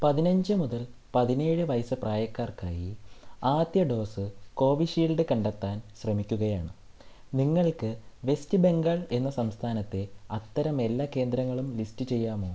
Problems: low volume